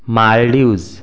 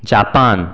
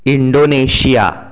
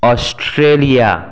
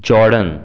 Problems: background sounds at intervals